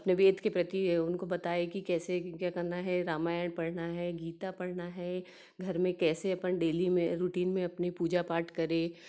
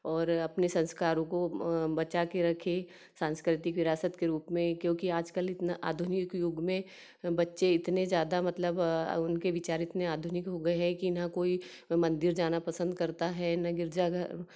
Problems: none marked